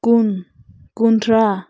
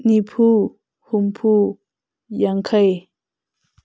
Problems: constant background noise